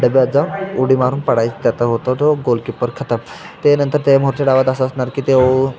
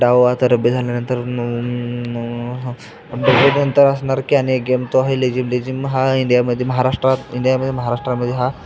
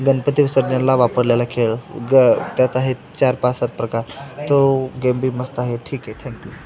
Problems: constant background noise, continuous background conversations